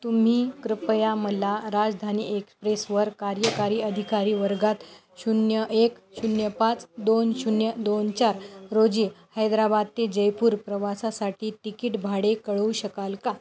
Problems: none marked